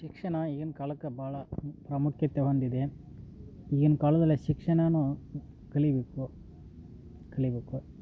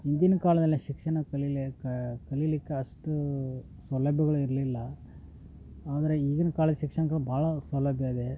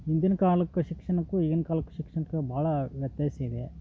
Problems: background conversations at intervals